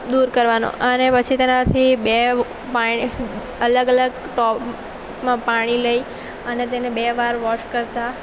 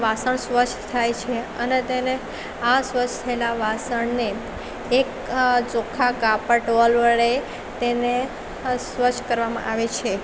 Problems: constant background noise